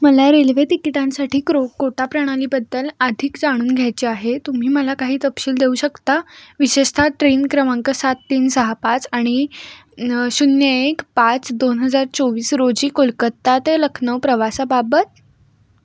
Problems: constant background noise